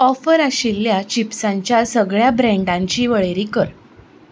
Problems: background sounds at intervals